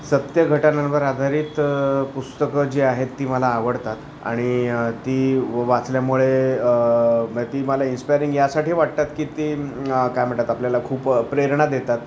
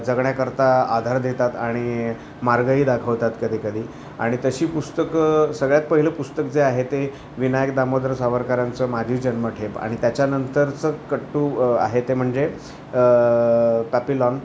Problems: constant background noise, continuous background conversations